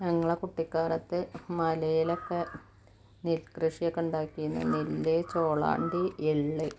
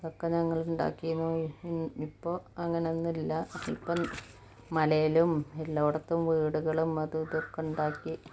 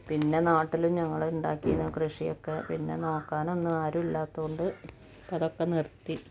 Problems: low volume